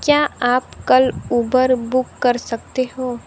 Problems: constant background noise